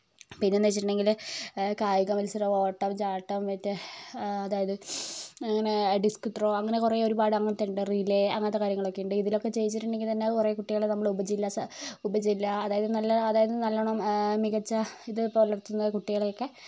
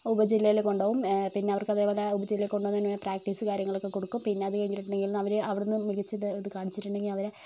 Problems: none marked